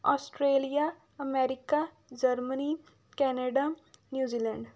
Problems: background sounds at intervals